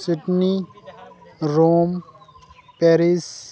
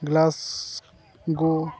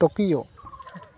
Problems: background sounds at intervals, continuous background conversations